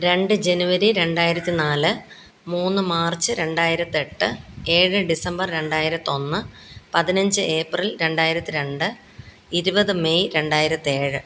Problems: background sounds at intervals, background conversations at intervals